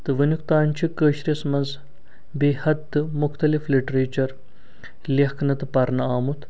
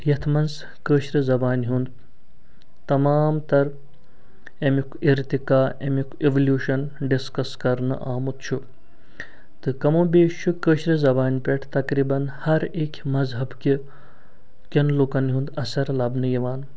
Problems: none marked